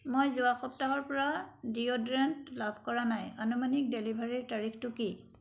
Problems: background sounds at intervals